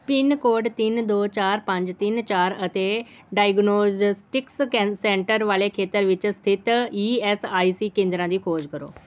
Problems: background sounds at intervals